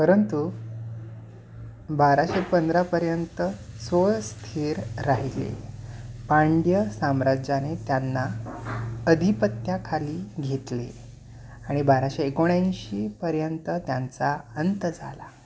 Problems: none marked